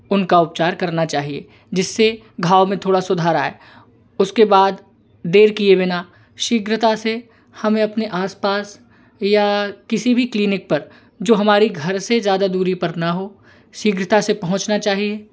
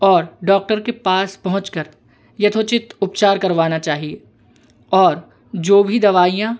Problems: none marked